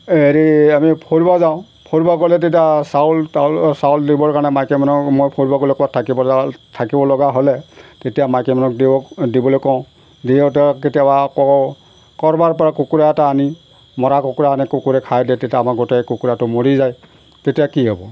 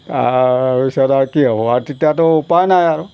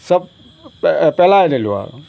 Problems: background sounds at intervals